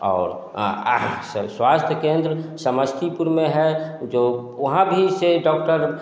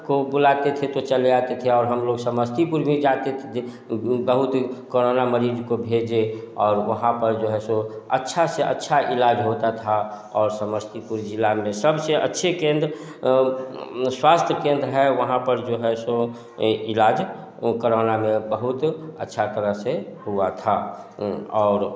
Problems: background sounds at intervals, echo